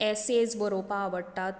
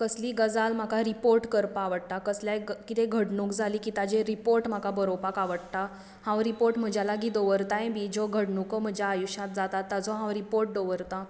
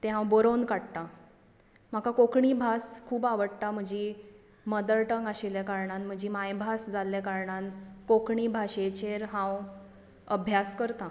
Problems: constant background noise